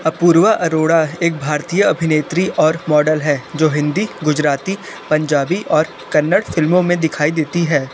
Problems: constant background noise